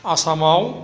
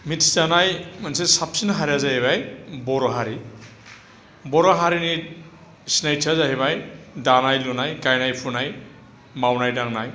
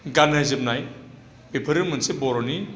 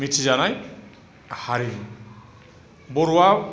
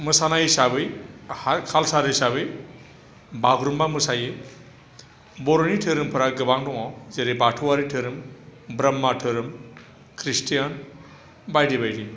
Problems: low volume